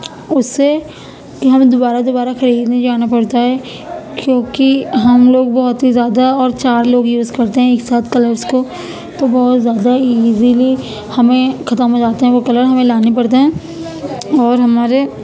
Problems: constant background noise